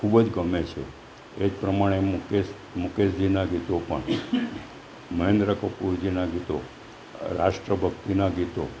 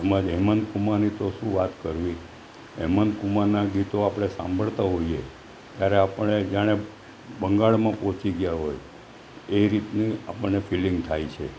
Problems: none marked